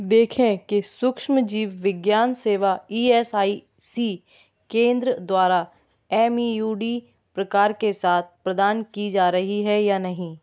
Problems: background sounds at intervals